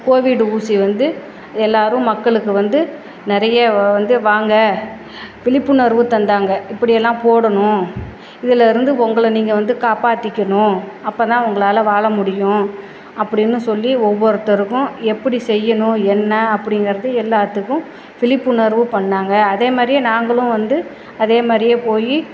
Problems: none marked